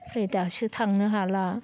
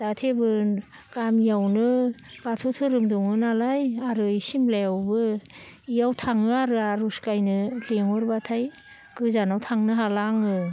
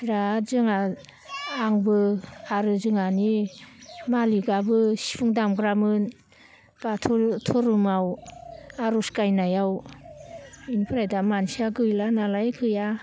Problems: none marked